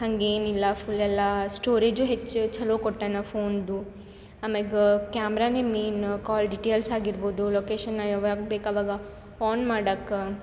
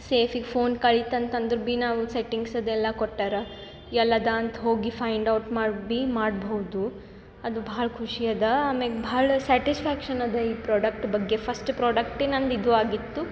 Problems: background sounds at intervals